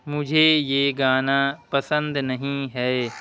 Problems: constant background noise